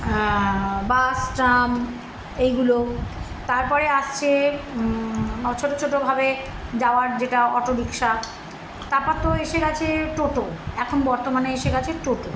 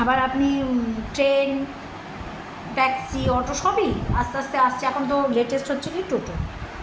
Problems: none marked